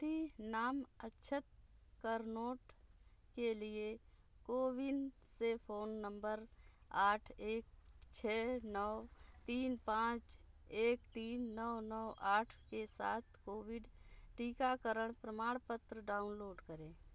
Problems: background sounds at intervals